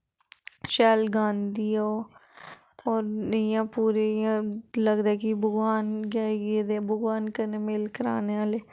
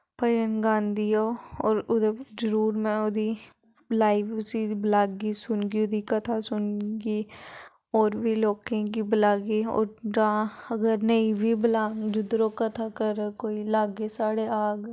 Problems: background conversations at intervals